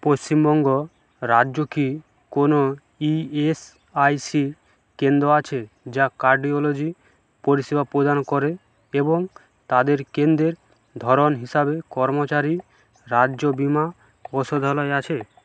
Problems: background sounds at intervals